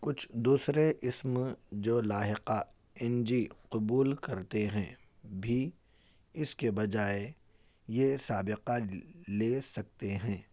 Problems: none marked